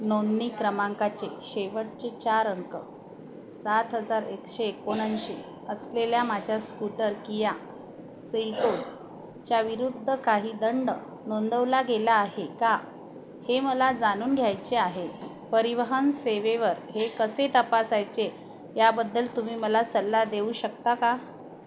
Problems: none marked